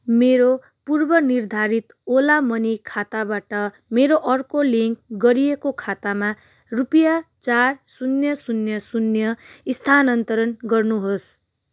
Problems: none marked